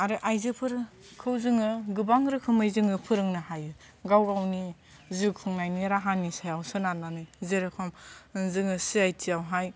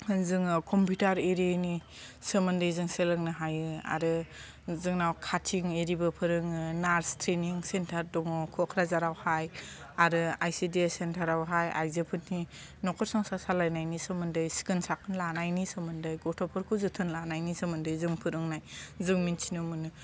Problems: none marked